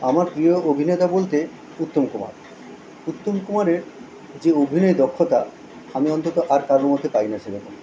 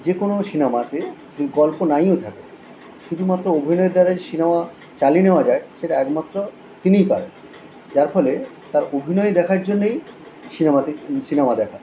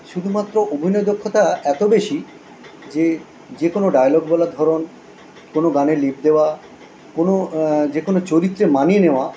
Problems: none marked